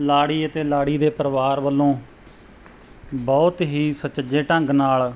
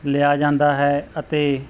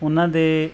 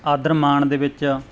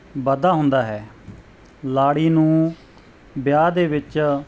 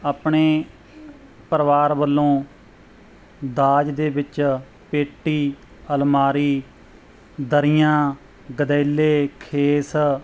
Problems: background sounds at intervals